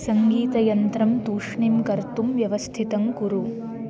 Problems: constant background noise